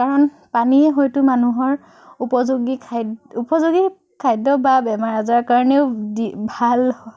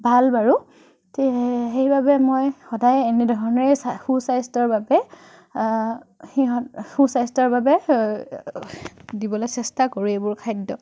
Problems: none marked